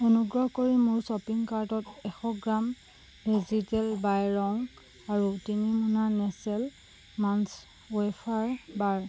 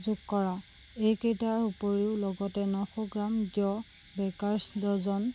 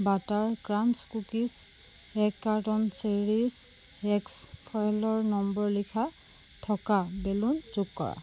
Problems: constant background noise